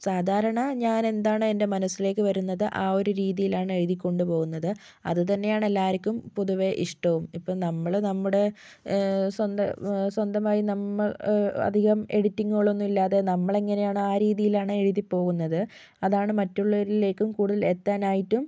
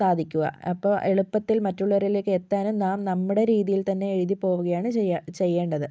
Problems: none marked